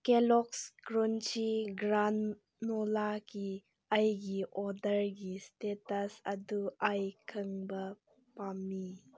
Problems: background conversations at intervals